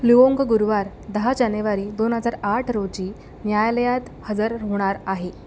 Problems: none marked